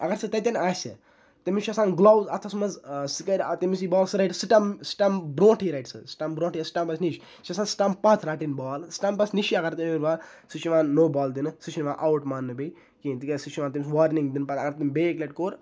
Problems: none marked